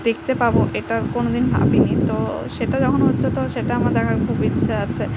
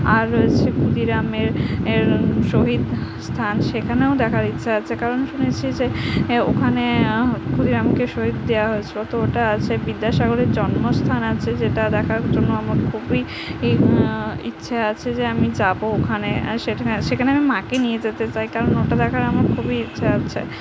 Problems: constant background noise